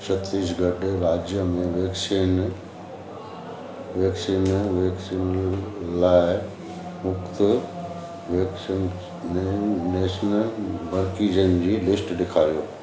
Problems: constant background noise